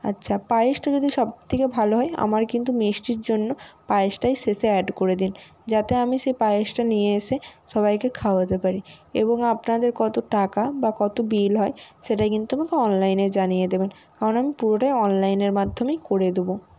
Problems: none marked